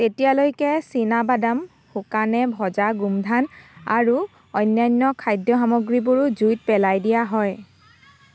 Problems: constant background noise